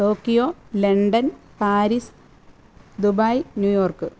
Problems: none marked